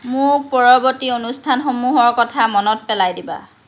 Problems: background conversations at intervals